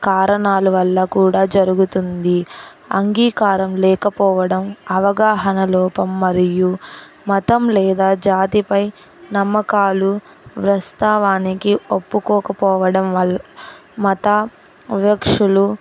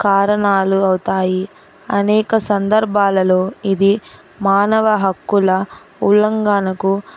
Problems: none marked